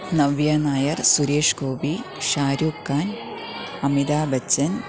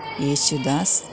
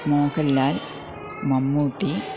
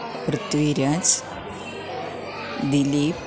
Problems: continuous background conversations, low volume